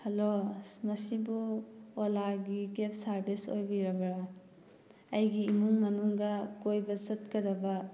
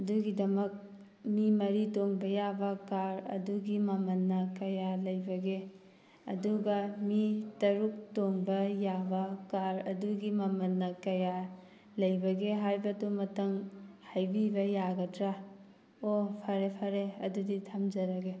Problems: background sounds at intervals